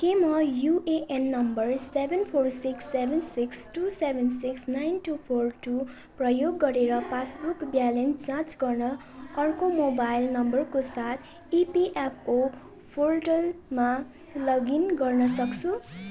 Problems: continuous background conversations